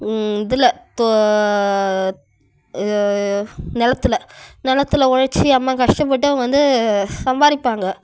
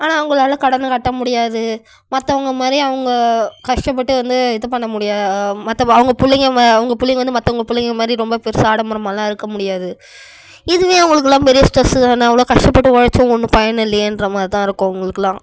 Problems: none marked